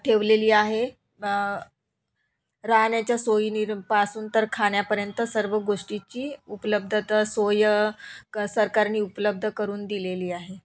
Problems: background sounds at intervals